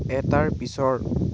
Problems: constant background noise